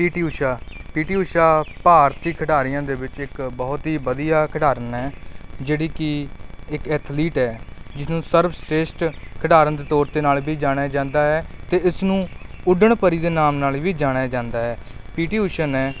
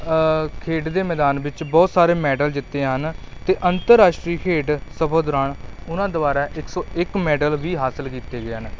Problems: background sounds at intervals